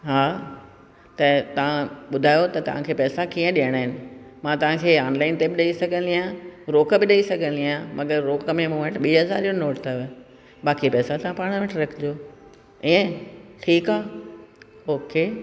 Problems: constant background noise, echo